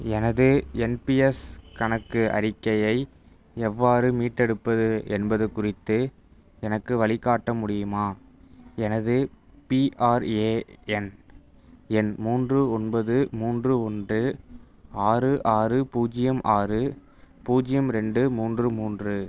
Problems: none marked